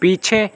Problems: constant background noise